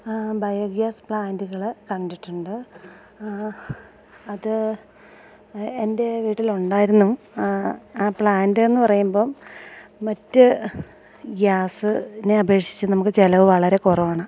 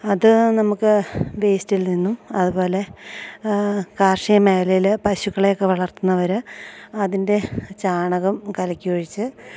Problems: none marked